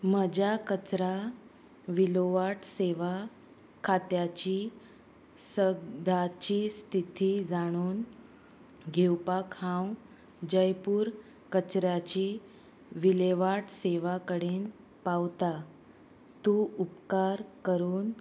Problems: none marked